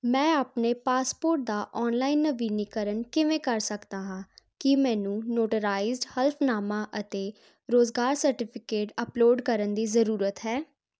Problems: none marked